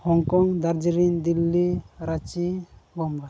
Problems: background sounds at intervals, low volume